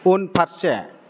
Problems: none marked